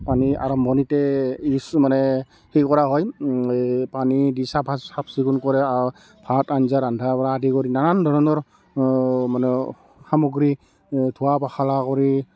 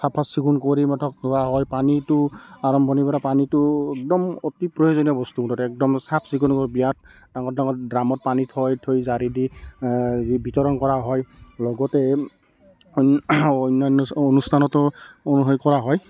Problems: background sounds at intervals, continuous background conversations